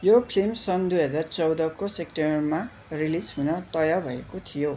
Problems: constant background noise, continuous background conversations